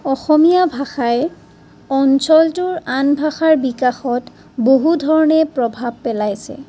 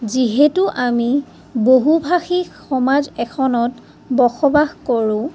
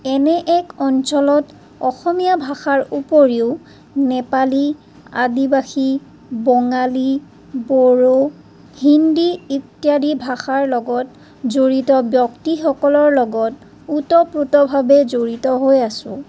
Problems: none marked